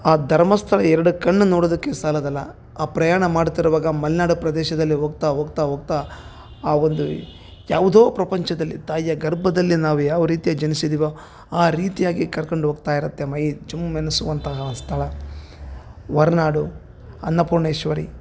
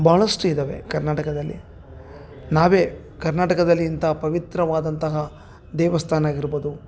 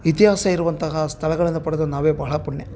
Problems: none marked